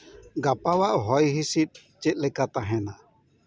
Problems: none marked